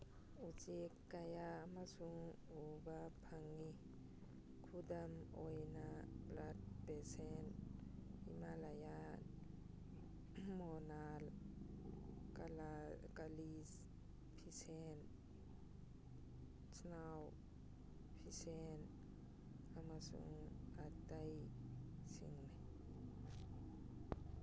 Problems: background sounds at intervals